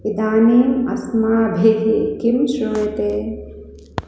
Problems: background sounds at intervals